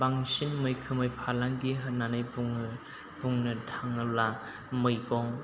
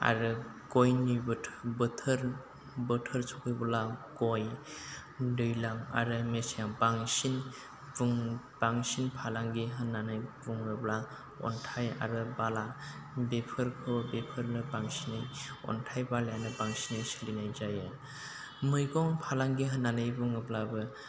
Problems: constant background noise, low volume